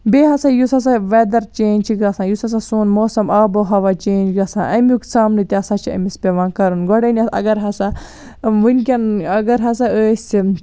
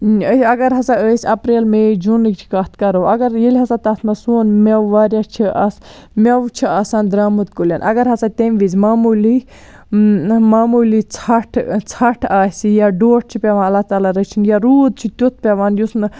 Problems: none marked